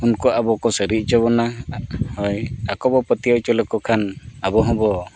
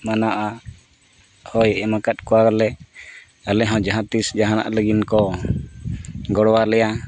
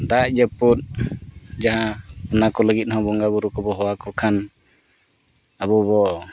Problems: background sounds at intervals